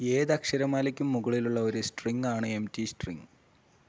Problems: low volume